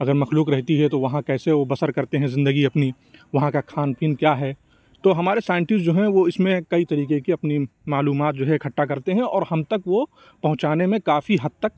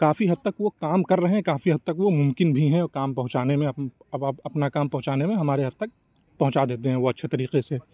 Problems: none marked